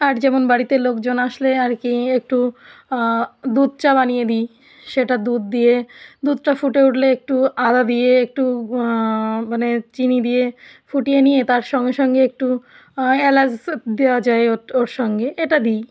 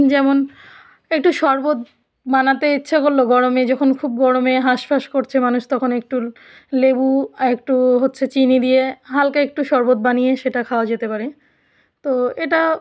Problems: none marked